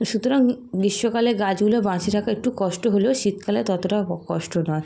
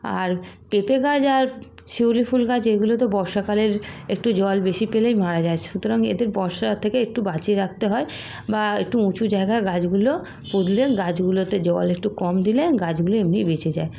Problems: background sounds at intervals